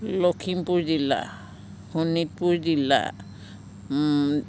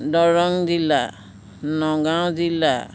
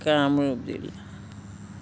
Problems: background conversations at intervals